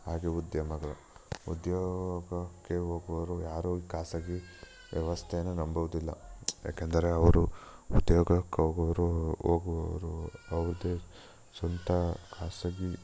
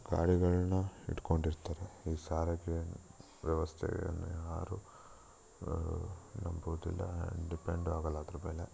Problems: background sounds at intervals